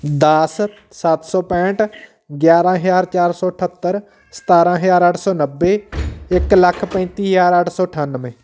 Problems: background sounds at intervals, background conversations at intervals